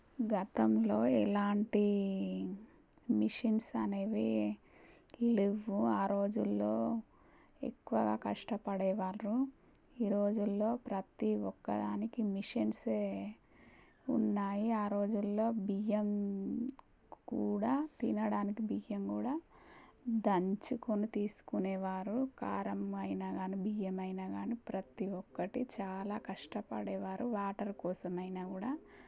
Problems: low volume